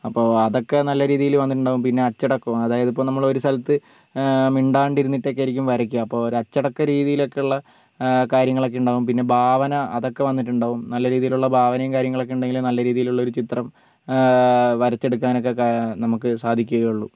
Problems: background sounds at intervals, low volume